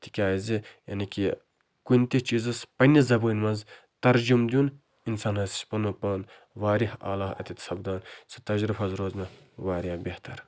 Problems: none marked